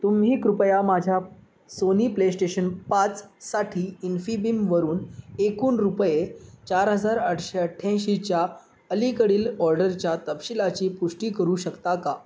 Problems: constant background noise